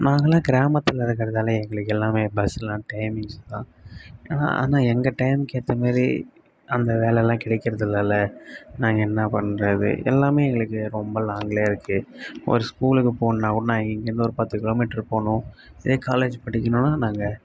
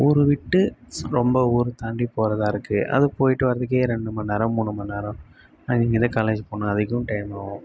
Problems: none marked